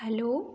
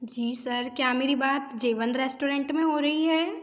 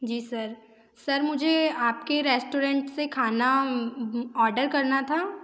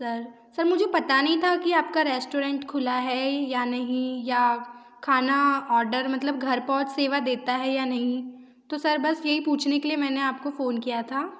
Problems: none marked